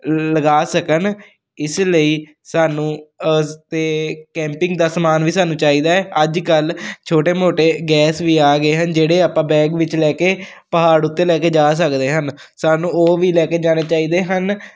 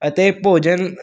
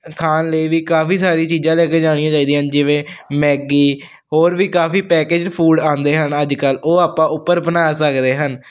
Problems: none marked